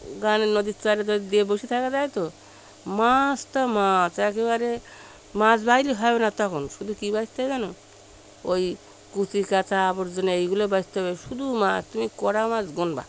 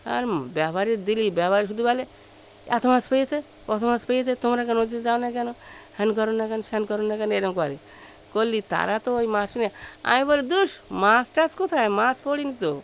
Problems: constant background noise, background conversations at intervals